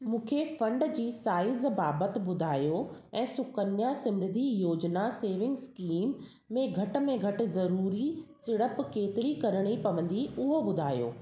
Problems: background sounds at intervals, echo